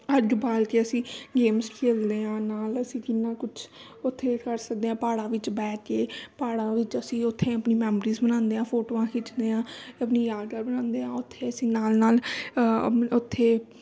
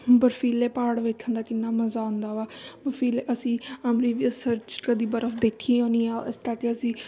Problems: none marked